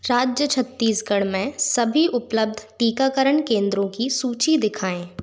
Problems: constant background noise